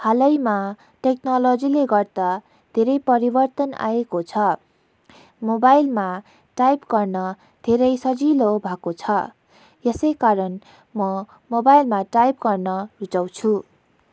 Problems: background sounds at intervals